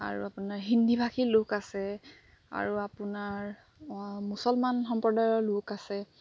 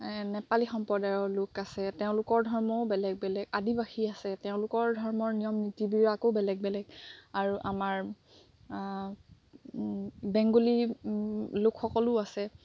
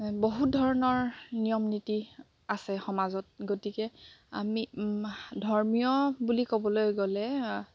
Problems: background sounds at intervals